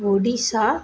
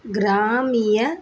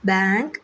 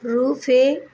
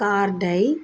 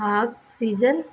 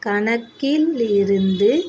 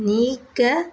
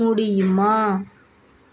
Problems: none marked